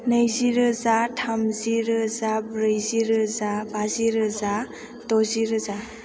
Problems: background sounds at intervals